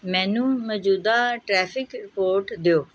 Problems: none marked